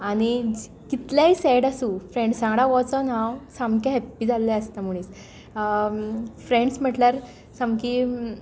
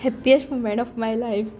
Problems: none marked